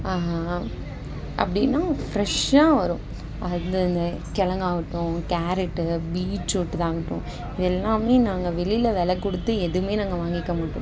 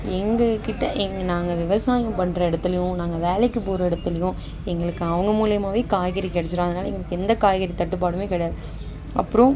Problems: constant background noise, background conversations at intervals